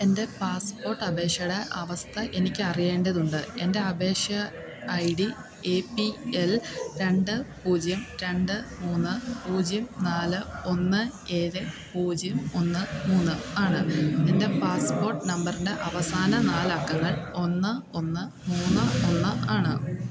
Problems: continuous background conversations